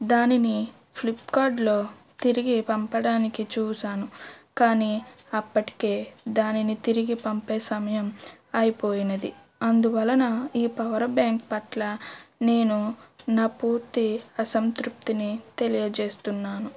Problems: background sounds at intervals